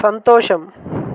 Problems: constant background noise